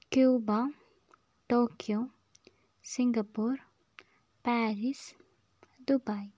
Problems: low volume